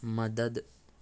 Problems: constant background noise, low volume